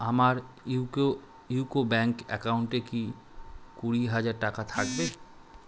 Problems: background sounds at intervals